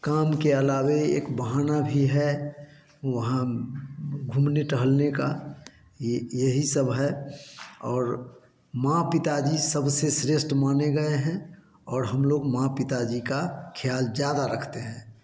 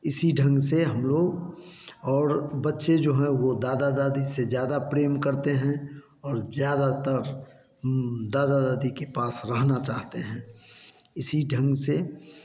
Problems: constant background noise